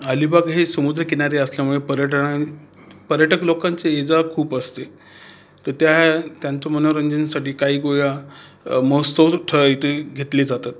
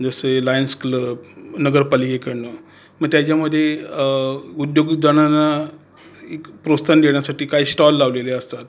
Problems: constant background noise